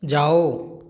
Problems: background sounds at intervals